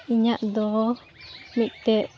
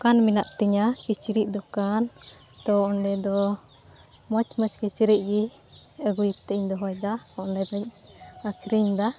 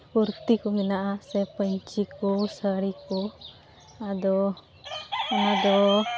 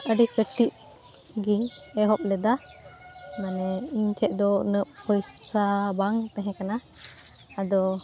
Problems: background sounds at intervals